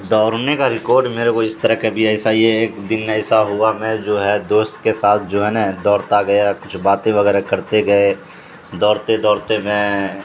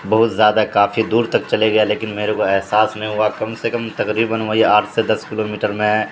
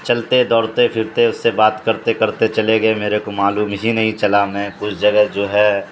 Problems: constant background noise